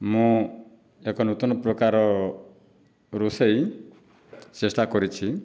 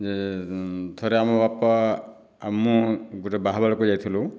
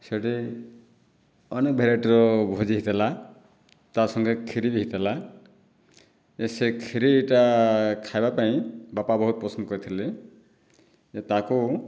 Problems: none marked